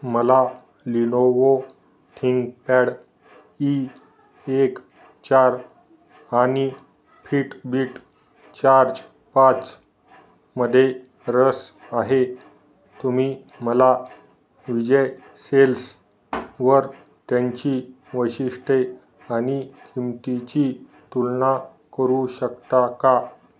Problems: none marked